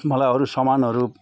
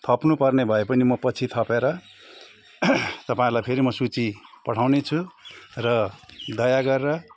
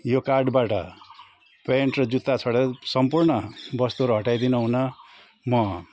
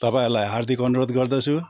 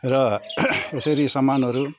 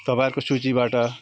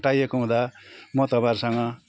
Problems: constant background noise, continuous background conversations